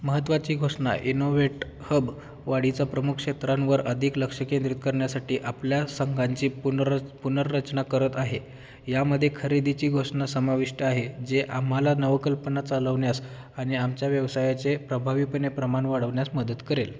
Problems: background sounds at intervals